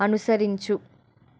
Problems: none marked